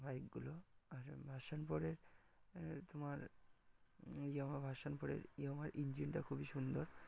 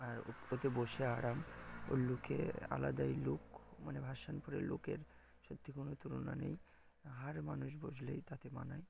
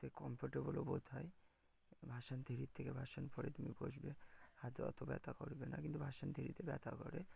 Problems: background sounds at intervals